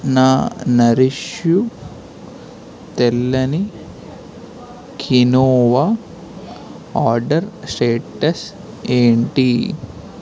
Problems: constant background noise